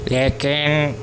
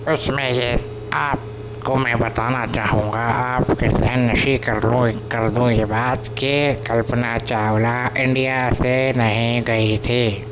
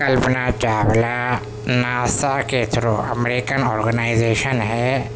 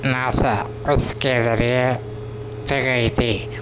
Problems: constant background noise